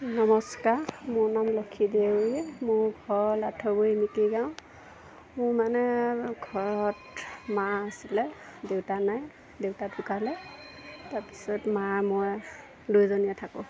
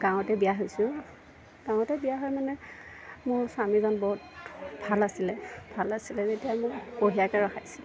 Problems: none marked